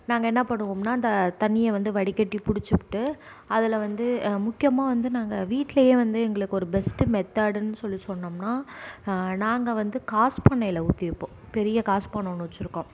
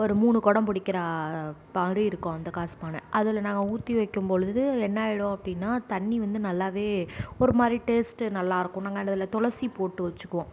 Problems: none marked